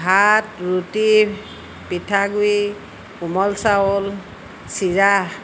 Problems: constant background noise